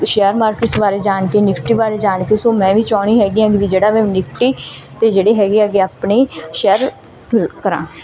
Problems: none marked